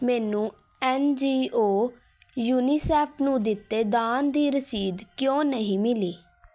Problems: constant background noise